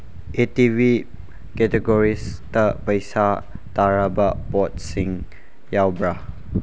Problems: background sounds at intervals